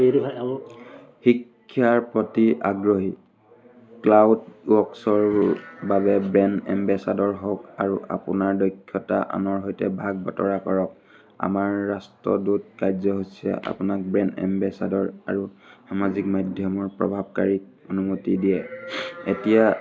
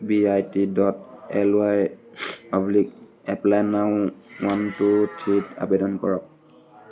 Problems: none marked